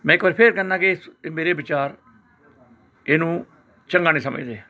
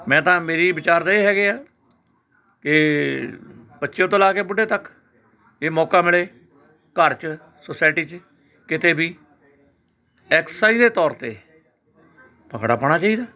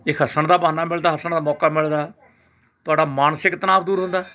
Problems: constant background noise, continuous background conversations